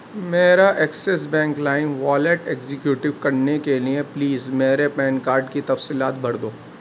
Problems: constant background noise